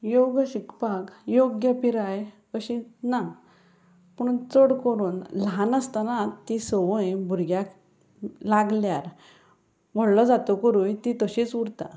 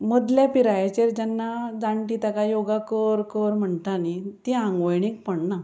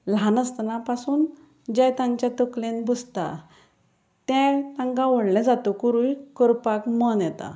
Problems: background sounds at intervals